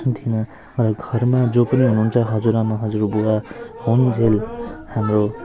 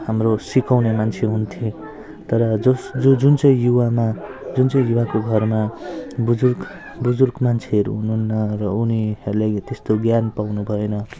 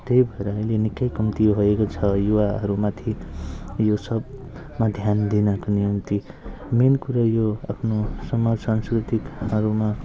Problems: low volume